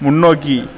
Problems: background conversations at intervals